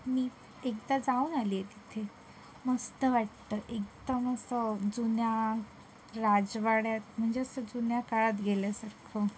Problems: none marked